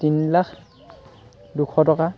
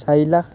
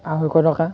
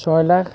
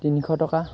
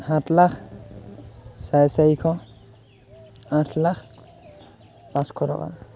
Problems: none marked